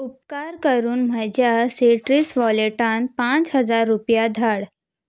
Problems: background sounds at intervals